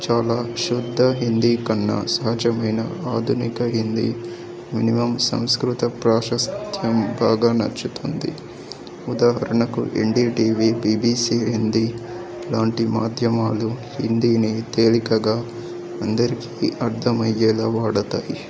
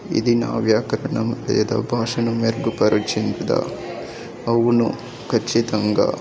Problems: background conversations at intervals